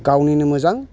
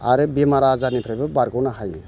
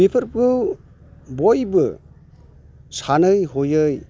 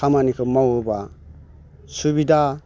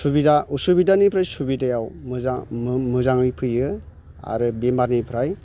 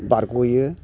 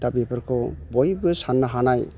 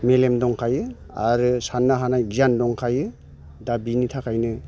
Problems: none marked